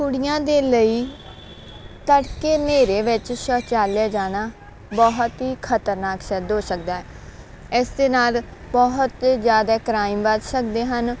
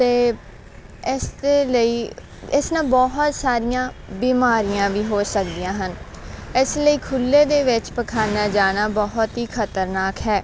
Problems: none marked